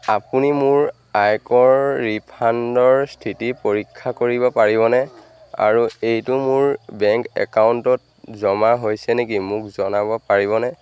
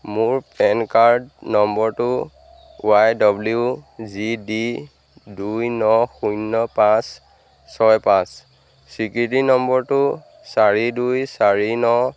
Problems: constant background noise